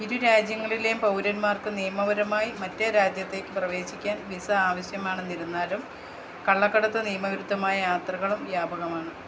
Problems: none marked